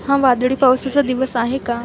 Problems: constant background noise, continuous background conversations